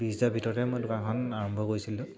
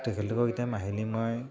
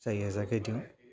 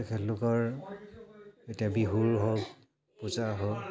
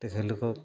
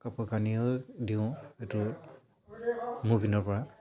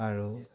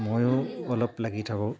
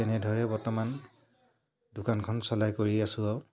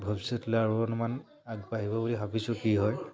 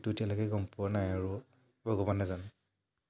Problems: low volume